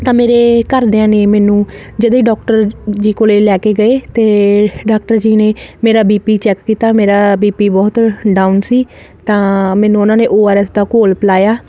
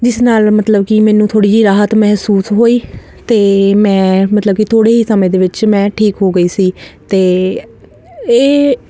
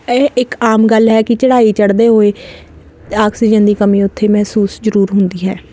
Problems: none marked